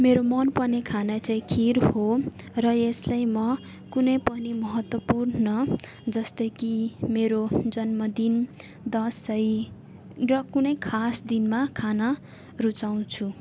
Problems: background sounds at intervals